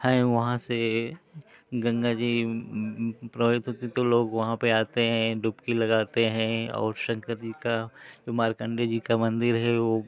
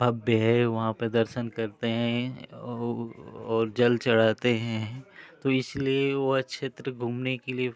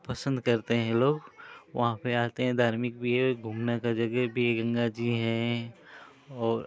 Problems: constant background noise